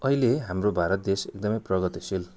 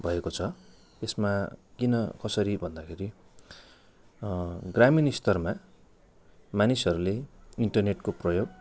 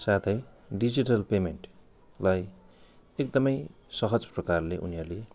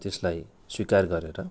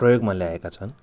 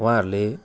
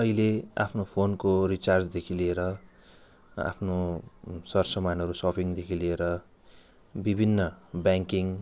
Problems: none marked